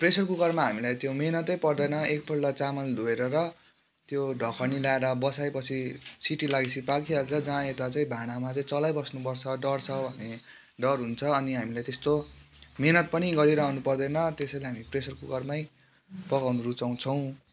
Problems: constant background noise